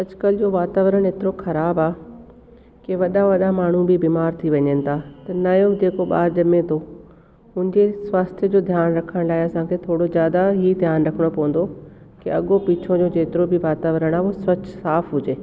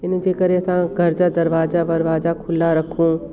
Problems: constant background noise, echo